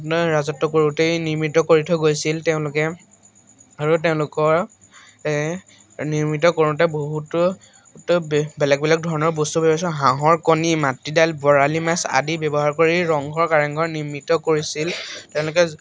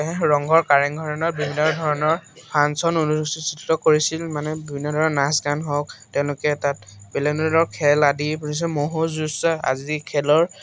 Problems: constant background noise, background conversations at intervals